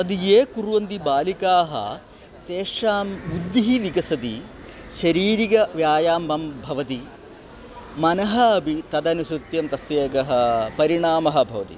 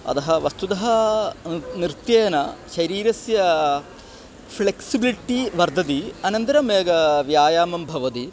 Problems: constant background noise